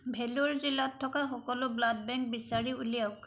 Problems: none marked